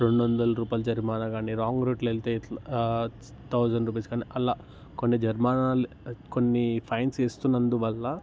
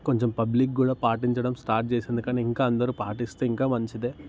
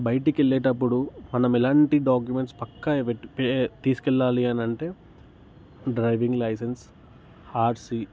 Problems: constant background noise